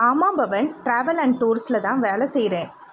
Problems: constant background noise